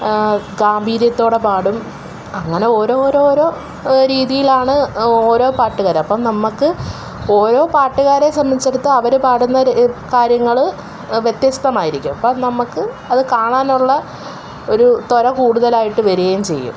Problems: background sounds at intervals